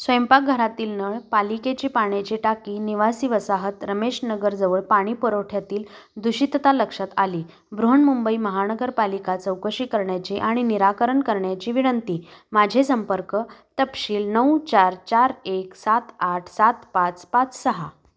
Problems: none marked